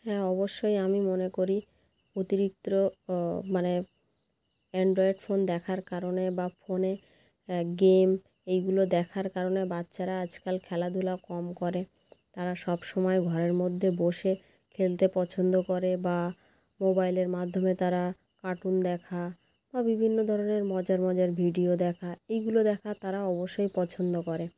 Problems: none marked